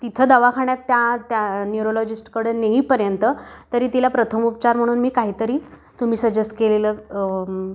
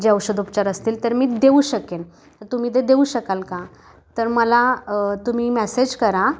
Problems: background sounds at intervals